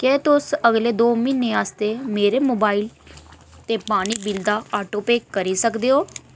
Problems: none marked